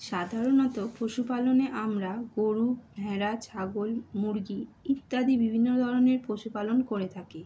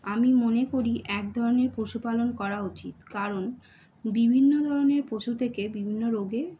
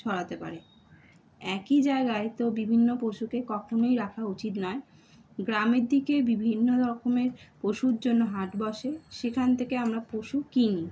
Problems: none marked